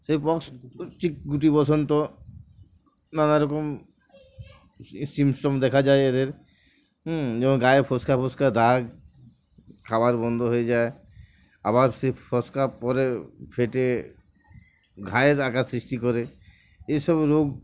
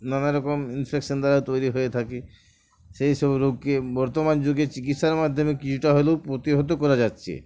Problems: none marked